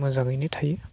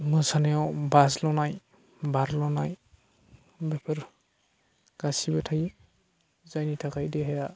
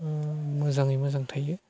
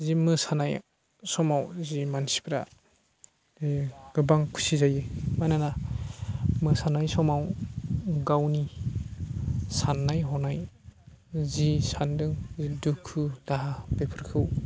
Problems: constant background noise